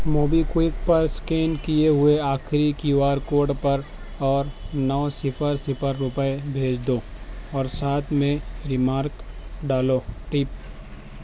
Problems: constant background noise